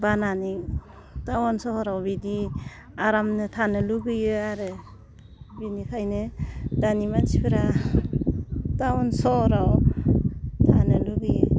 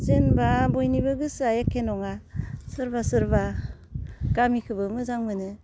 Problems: constant background noise